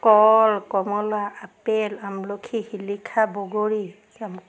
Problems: none marked